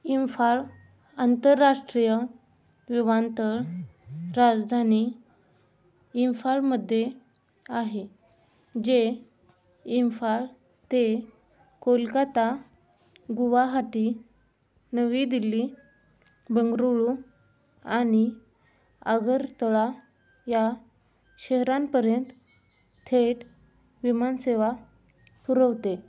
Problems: background sounds at intervals